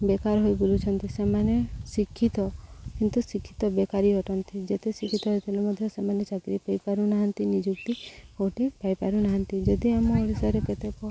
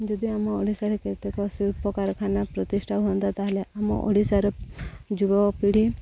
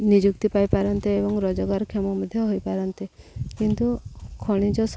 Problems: constant background noise, background conversations at intervals, low volume